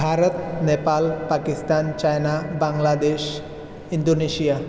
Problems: constant background noise